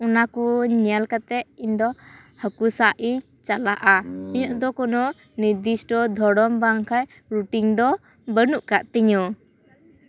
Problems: background sounds at intervals, background conversations at intervals